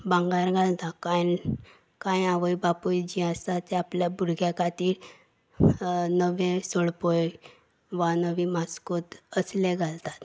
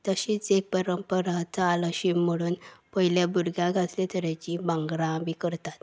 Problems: none marked